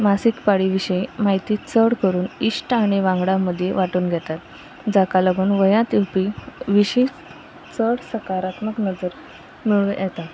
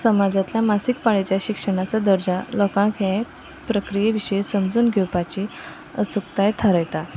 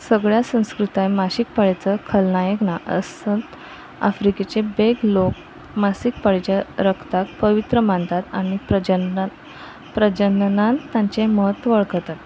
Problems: constant background noise